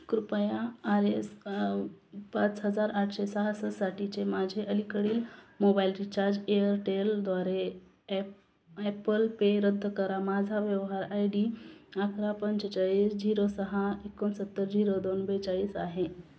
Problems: constant background noise